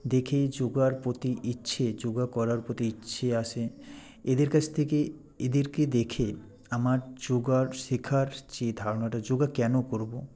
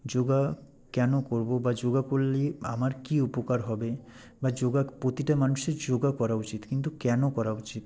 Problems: none marked